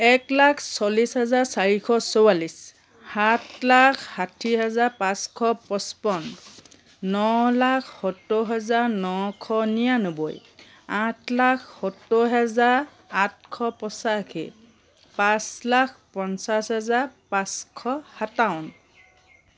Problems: background sounds at intervals